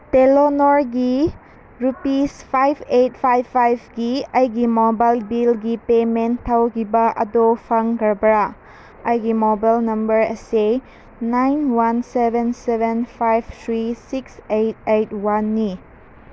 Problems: none marked